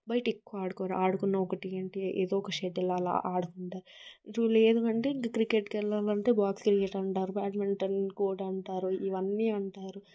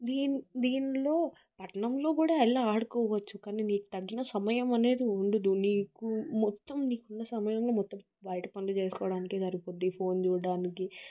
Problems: background sounds at intervals